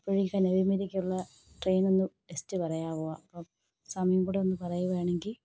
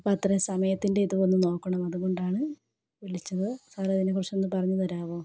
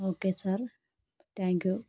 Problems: none marked